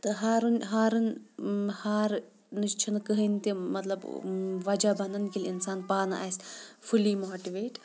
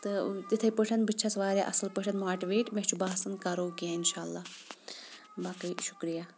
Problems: background sounds at intervals, low volume